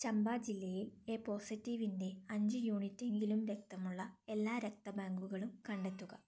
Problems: low volume